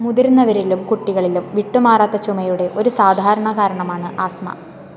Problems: none marked